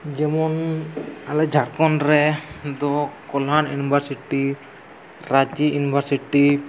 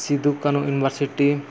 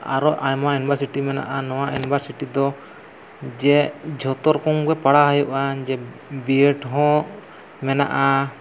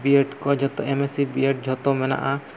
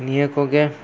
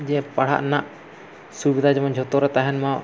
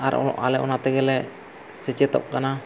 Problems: constant background noise